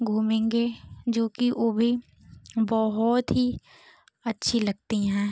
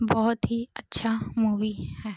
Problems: none marked